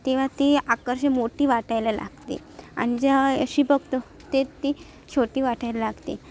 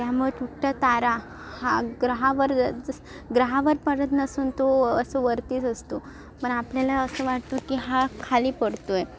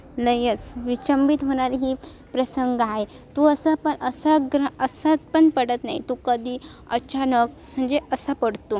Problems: constant background noise, background conversations at intervals